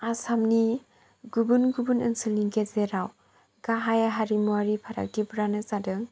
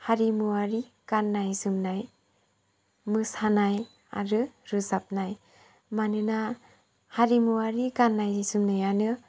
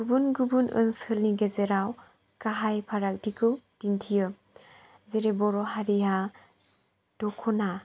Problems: low volume